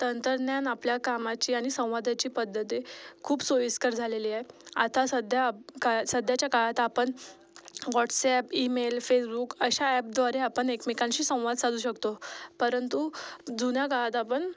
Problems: background sounds at intervals, background conversations at intervals